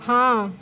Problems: constant background noise, continuous background conversations